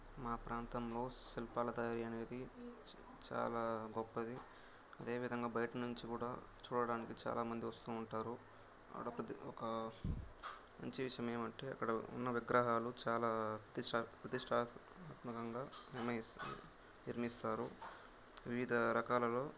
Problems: constant background noise